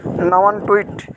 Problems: constant background noise